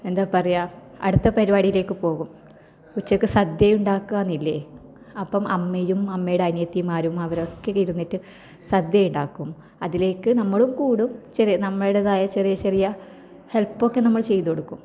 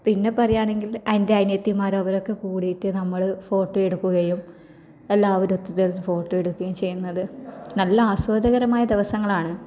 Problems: none marked